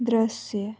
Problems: low volume